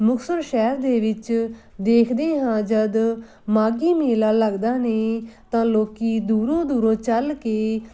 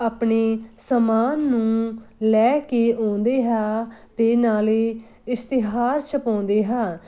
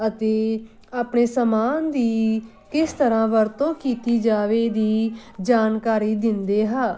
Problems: constant background noise